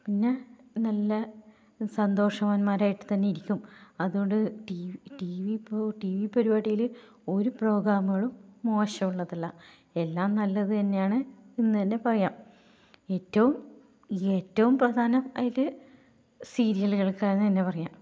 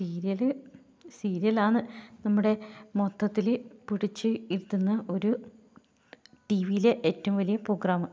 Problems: low volume